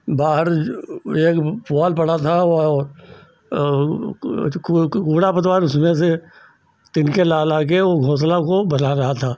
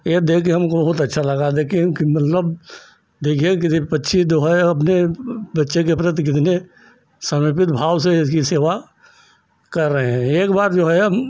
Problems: none marked